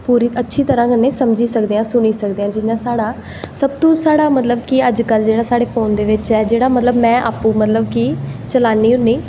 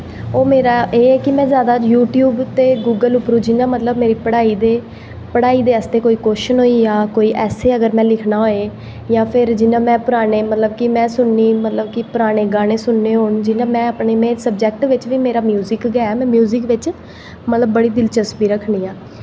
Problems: echo